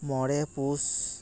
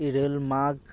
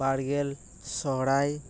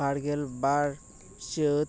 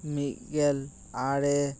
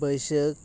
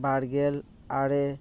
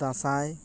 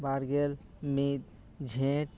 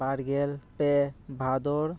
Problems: background sounds at intervals